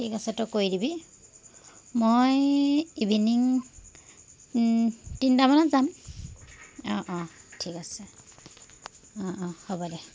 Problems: constant background noise